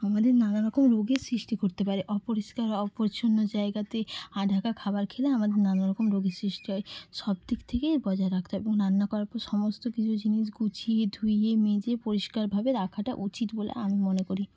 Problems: constant background noise